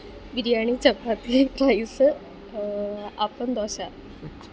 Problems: constant background noise, low volume